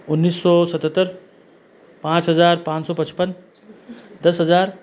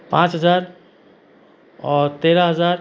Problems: constant background noise